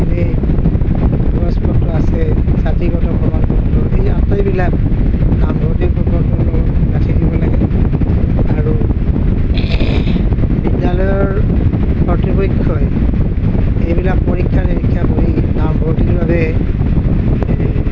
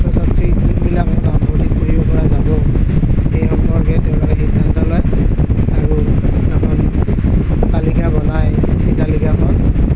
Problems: constant background noise, low volume